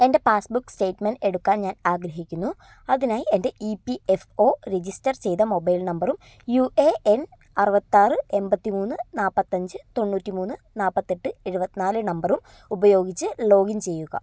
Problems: low volume